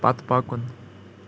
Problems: constant background noise